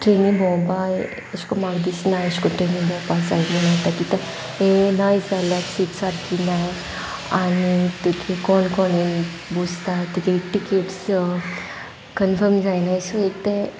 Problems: constant background noise